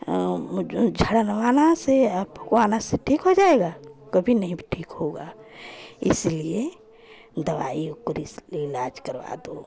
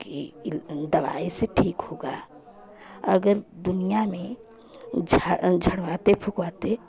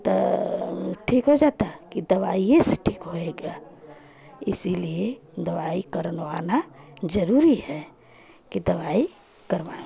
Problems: constant background noise, continuous background conversations